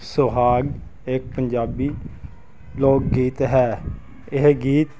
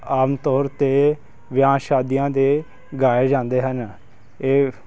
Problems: constant background noise